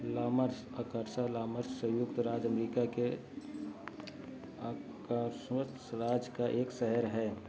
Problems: none marked